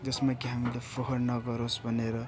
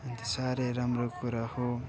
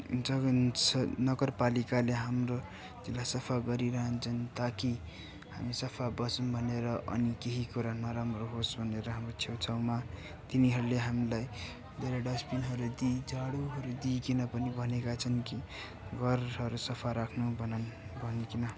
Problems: constant background noise, continuous background conversations